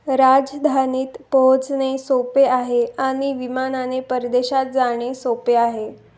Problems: none marked